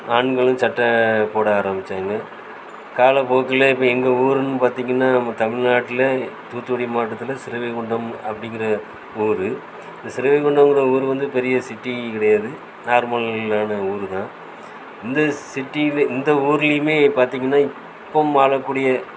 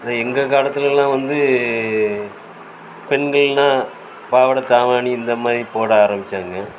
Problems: constant background noise